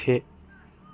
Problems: none marked